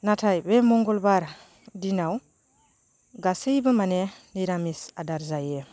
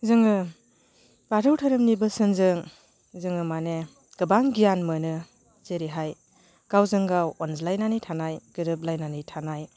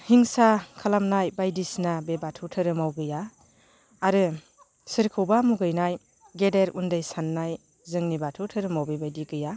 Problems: constant background noise